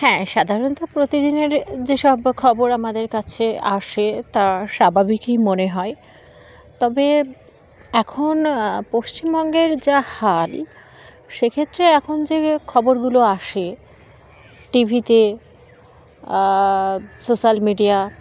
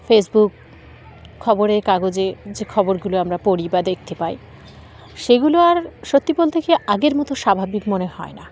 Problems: constant background noise